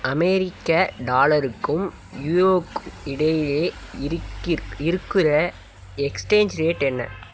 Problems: constant background noise